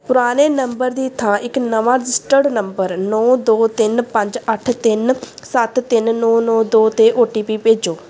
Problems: none marked